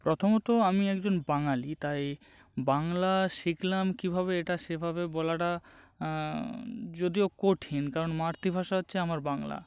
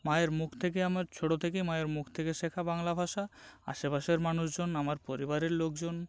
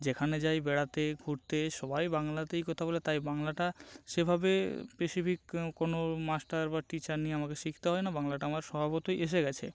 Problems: none marked